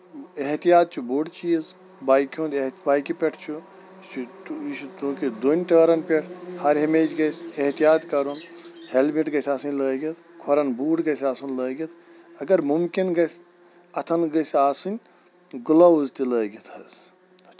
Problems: none marked